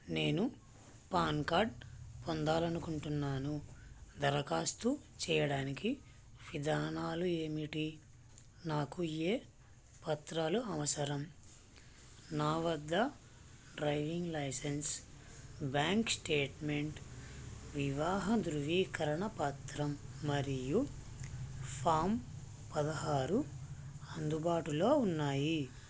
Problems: constant background noise, low volume